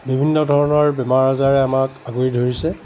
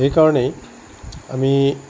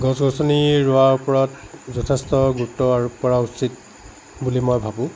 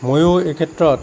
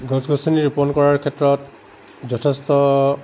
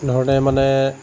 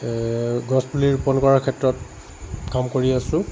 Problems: constant background noise